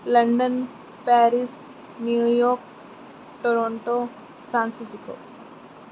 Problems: constant background noise